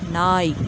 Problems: background sounds at intervals